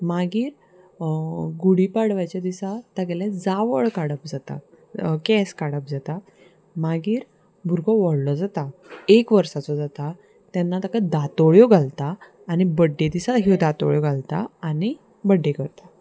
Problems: constant background noise, background conversations at intervals